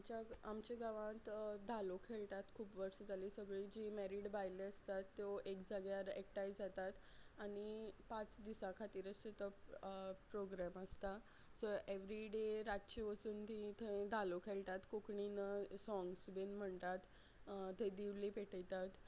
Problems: none marked